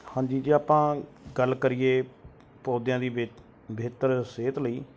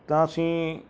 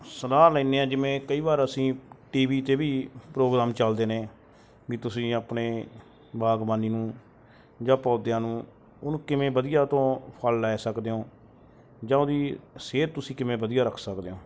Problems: none marked